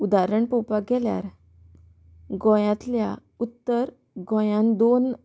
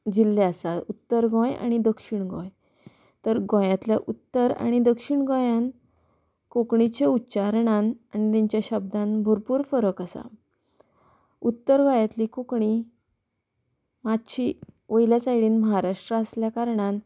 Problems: background sounds at intervals